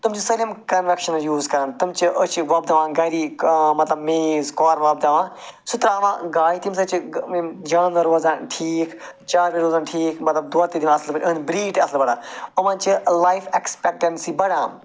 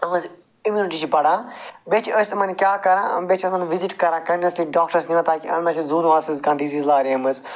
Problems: background sounds at intervals